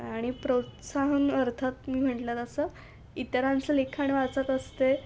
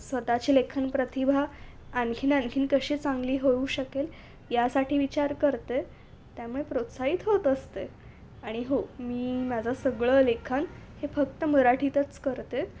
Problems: none marked